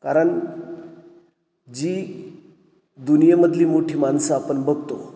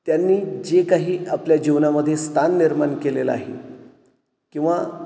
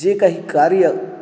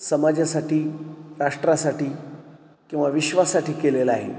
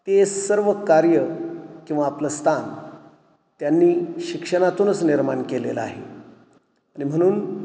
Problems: none marked